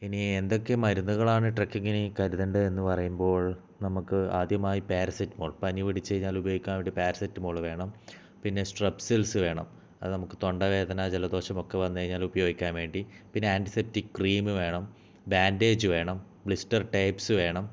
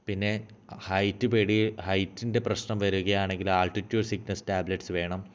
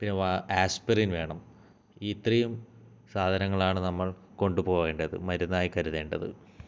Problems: low volume